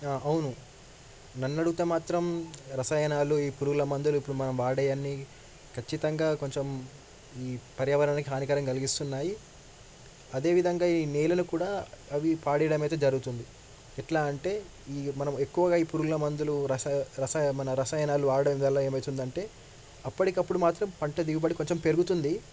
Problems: background sounds at intervals